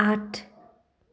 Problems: none marked